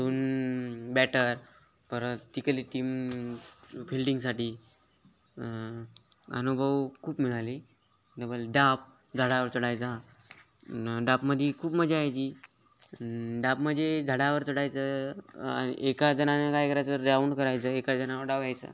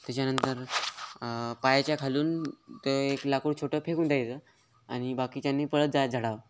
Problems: constant background noise, continuous background conversations